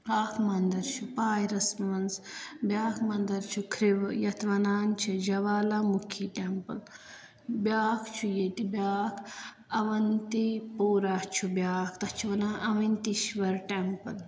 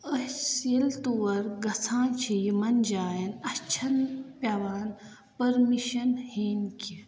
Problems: constant background noise, echo